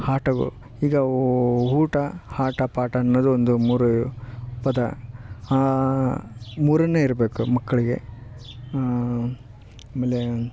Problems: background sounds at intervals